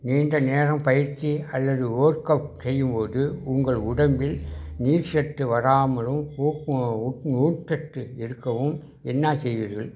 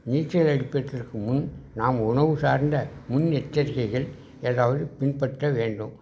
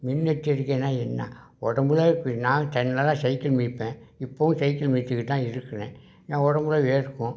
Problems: none marked